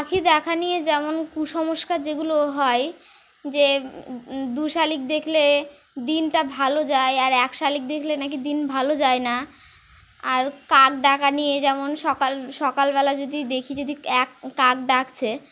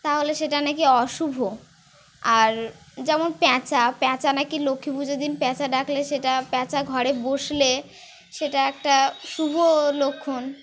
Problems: none marked